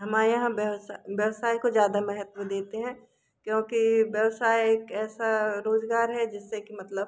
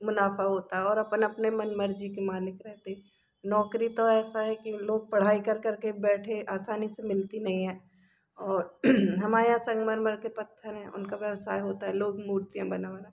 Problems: background sounds at intervals